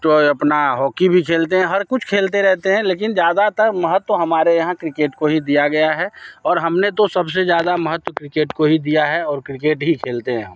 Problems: background sounds at intervals